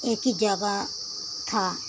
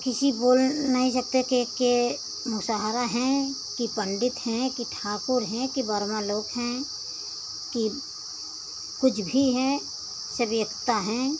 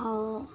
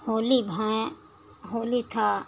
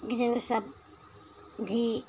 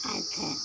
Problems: constant background noise